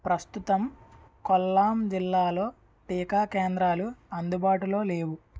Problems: none marked